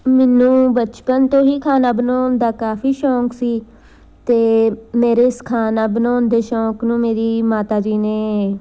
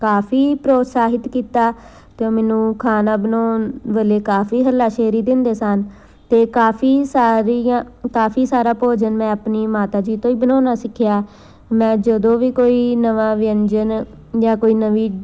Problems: none marked